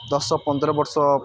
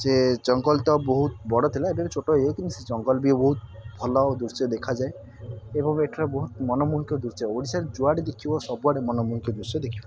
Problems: constant background noise, continuous background conversations